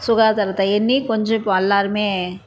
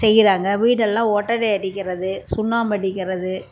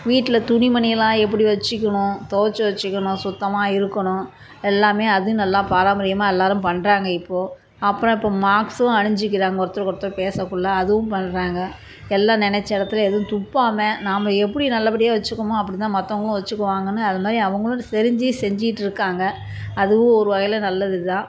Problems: background sounds at intervals